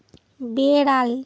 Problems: constant background noise